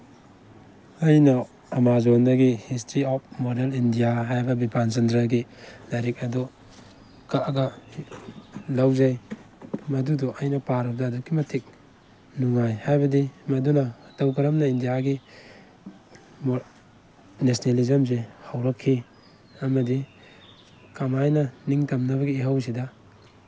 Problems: background sounds at intervals